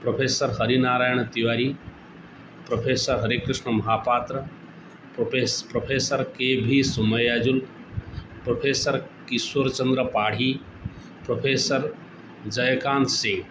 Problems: constant background noise